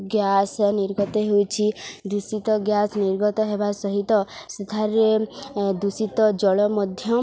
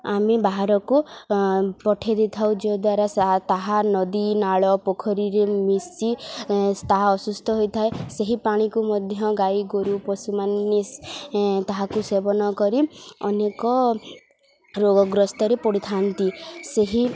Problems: none marked